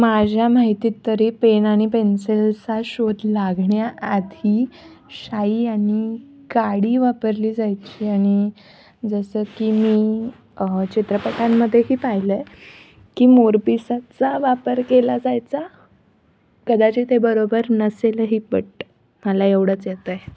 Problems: none marked